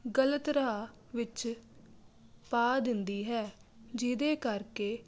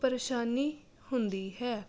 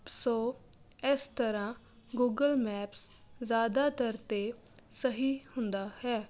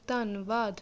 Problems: none marked